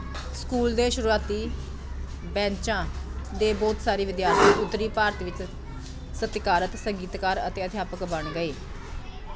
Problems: constant background noise, continuous background conversations